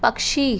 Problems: constant background noise